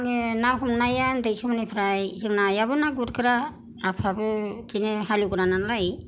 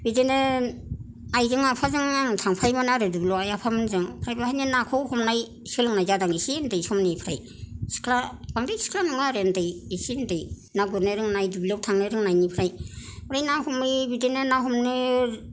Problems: none marked